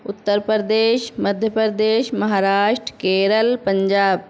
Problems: none marked